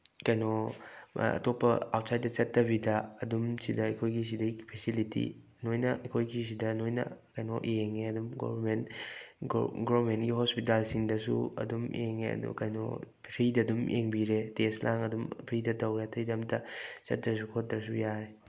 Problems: none marked